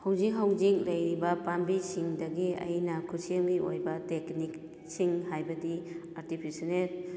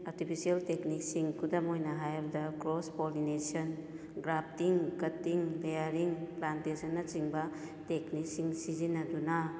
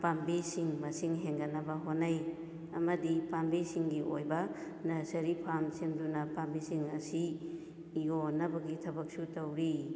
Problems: echo